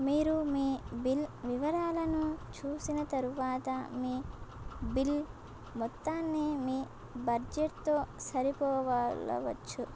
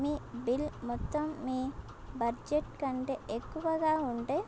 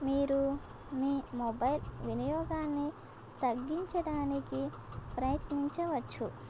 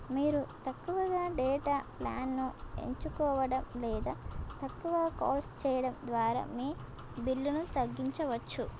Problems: constant background noise